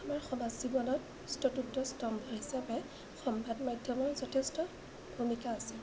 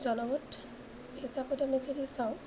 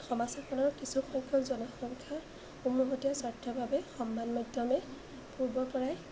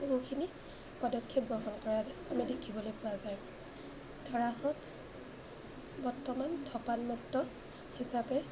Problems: constant background noise, low volume